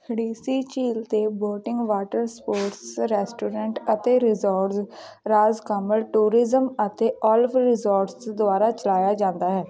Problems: background sounds at intervals, continuous background conversations